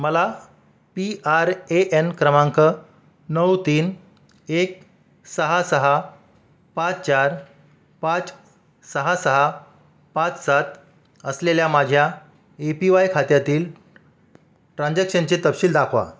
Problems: constant background noise